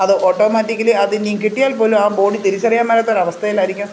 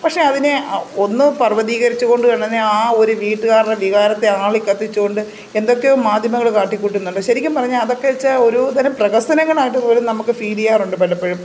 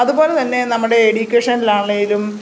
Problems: constant background noise